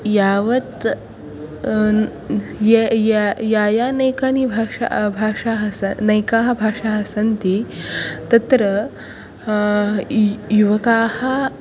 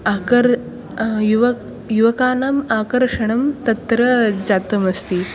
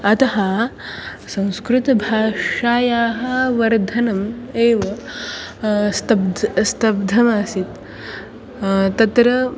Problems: continuous background conversations